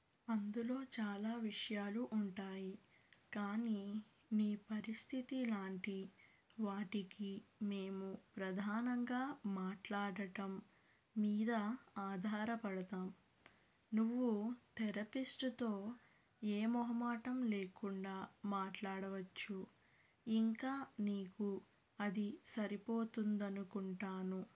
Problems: low volume